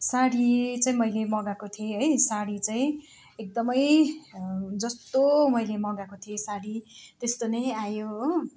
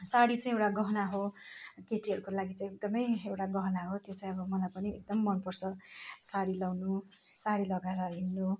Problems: constant background noise